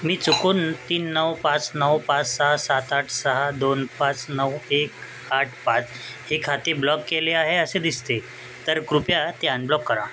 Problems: constant background noise